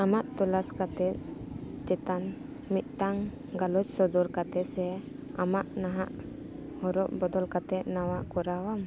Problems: background conversations at intervals